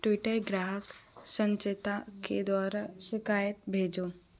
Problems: none marked